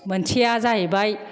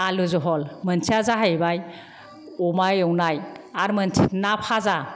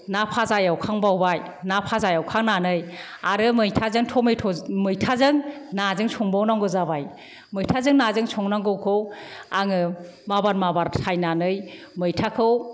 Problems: none marked